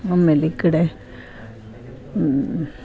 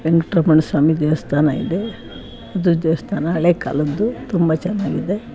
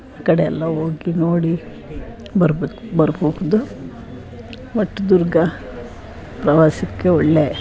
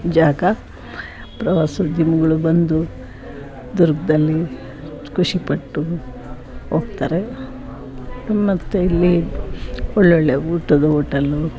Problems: background sounds at intervals